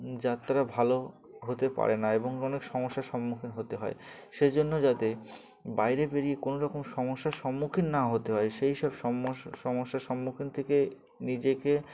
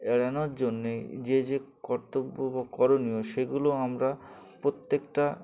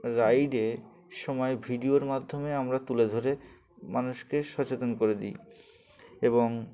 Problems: background sounds at intervals, background conversations at intervals